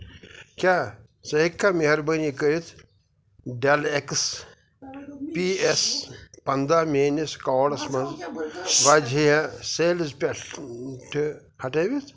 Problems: constant background noise